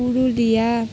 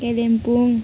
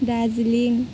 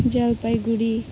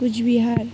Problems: background sounds at intervals